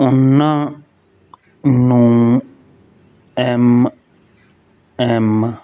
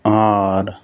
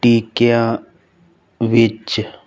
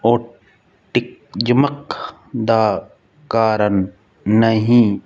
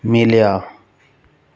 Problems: none marked